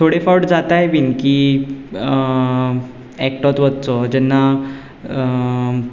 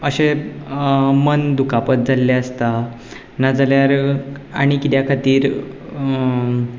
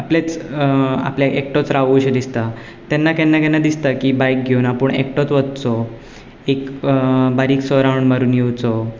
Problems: none marked